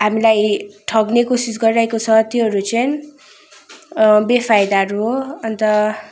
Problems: constant background noise